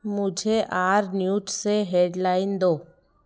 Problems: constant background noise